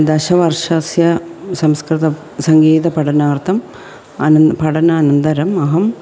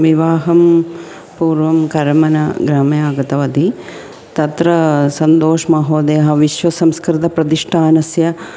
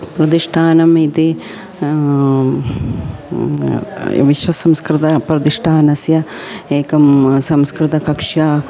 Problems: background sounds at intervals